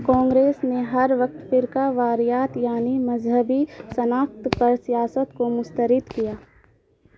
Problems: constant background noise